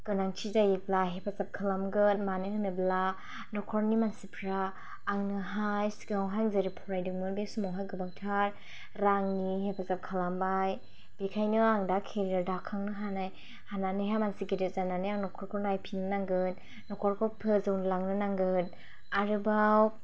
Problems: none marked